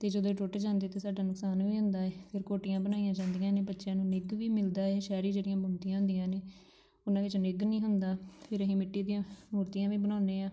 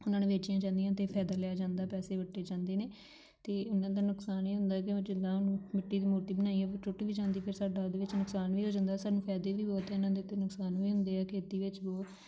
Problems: background sounds at intervals